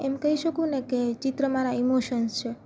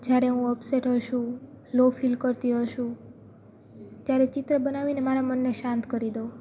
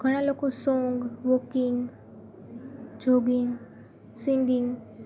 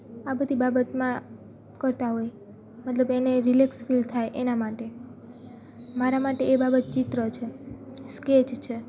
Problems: constant background noise, background conversations at intervals